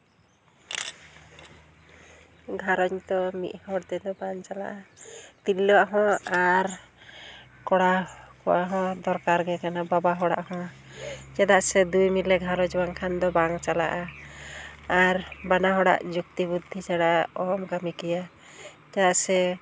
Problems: none marked